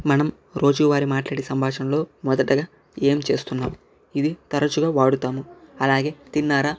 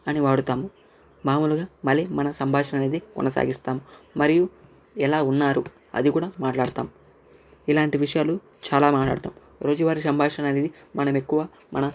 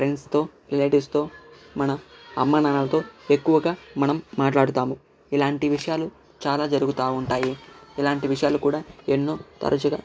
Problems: none marked